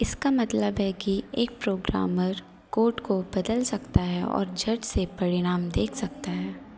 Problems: background sounds at intervals